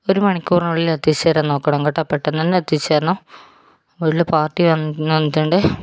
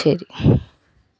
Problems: background sounds at intervals